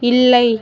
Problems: none marked